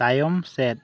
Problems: none marked